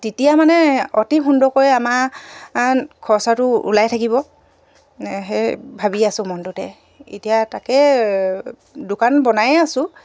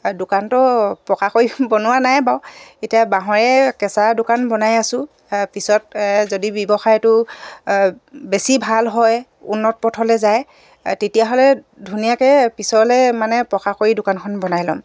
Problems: background sounds at intervals